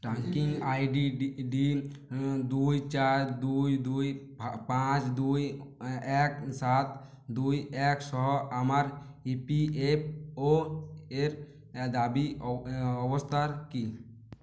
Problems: none marked